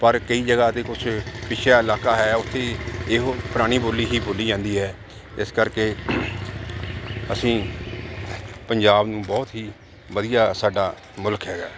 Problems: none marked